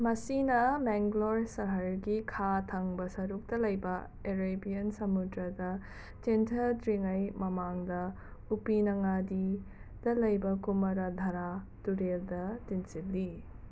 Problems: constant background noise